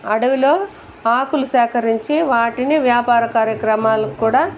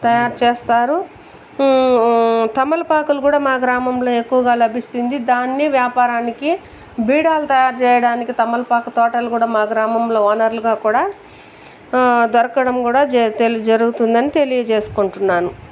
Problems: constant background noise